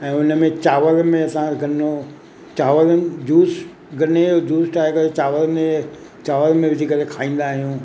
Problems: constant background noise, echo